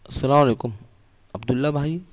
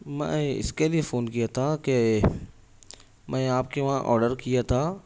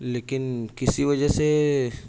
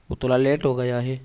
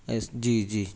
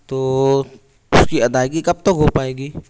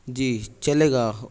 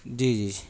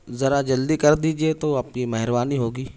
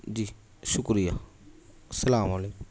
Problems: none marked